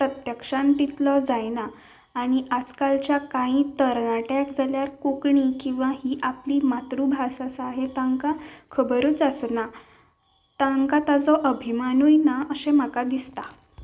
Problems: background sounds at intervals